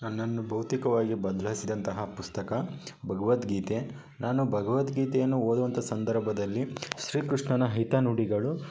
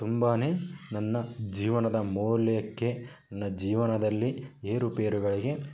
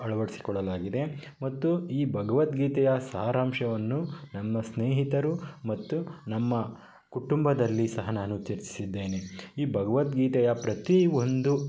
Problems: constant background noise